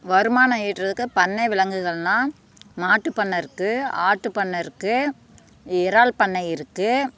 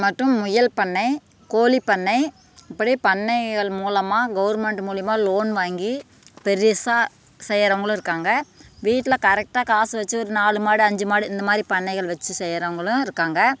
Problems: background sounds at intervals